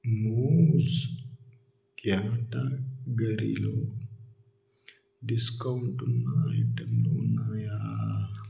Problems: echo